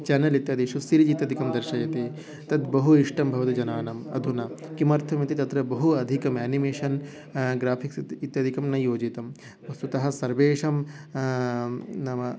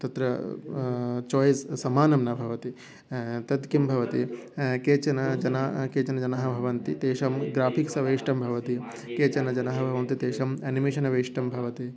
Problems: background sounds at intervals